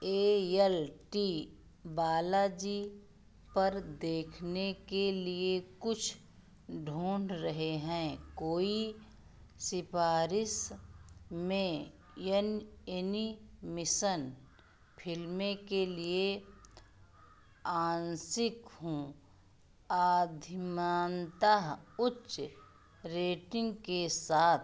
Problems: background sounds at intervals